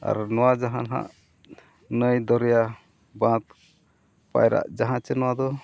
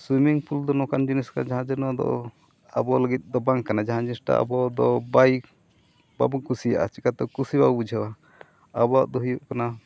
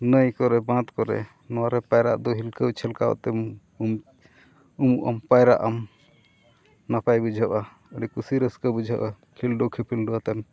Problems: none marked